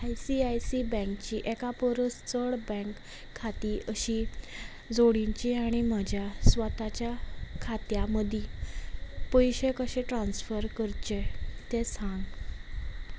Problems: constant background noise